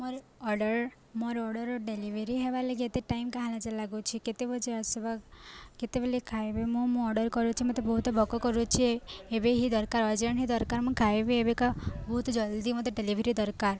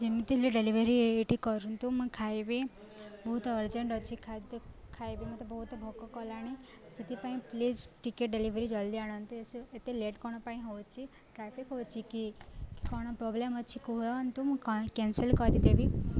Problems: constant background noise, continuous background conversations